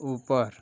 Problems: constant background noise